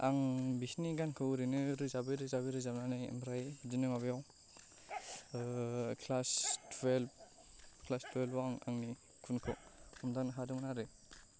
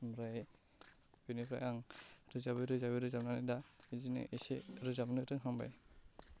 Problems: low volume